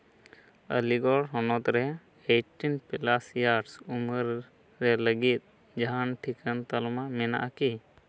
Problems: none marked